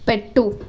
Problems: constant background noise